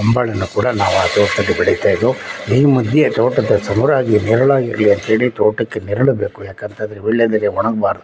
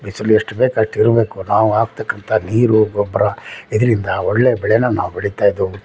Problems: background conversations at intervals